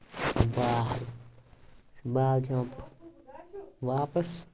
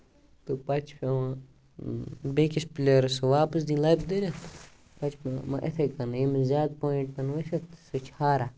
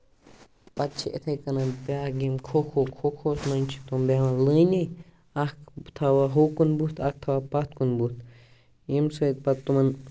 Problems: none marked